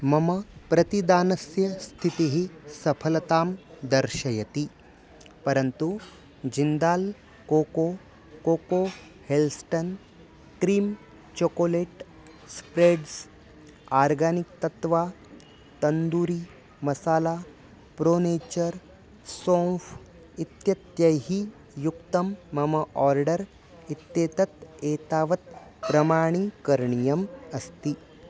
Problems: constant background noise